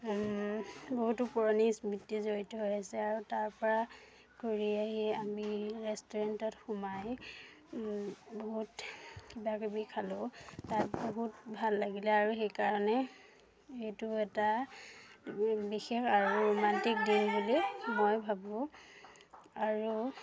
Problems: background conversations at intervals